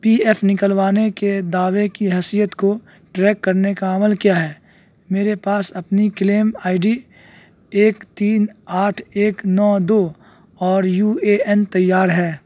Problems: background sounds at intervals